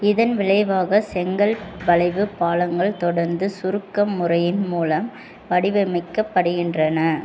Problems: constant background noise